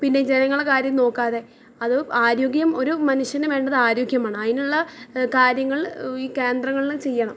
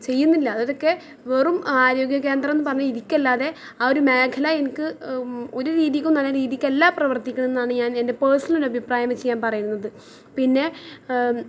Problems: background conversations at intervals